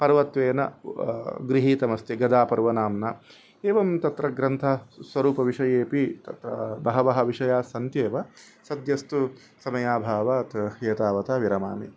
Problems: none marked